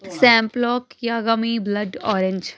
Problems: background conversations at intervals